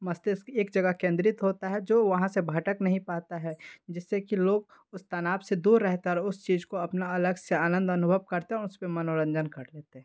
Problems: background sounds at intervals